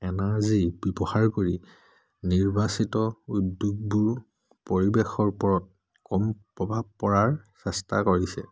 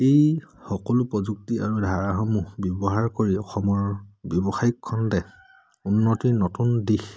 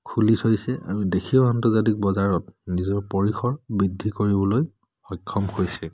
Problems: none marked